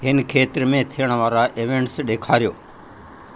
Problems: constant background noise